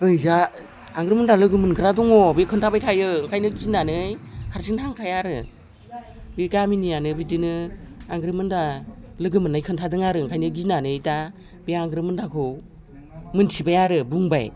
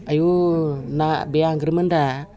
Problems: background conversations at intervals